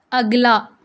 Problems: none marked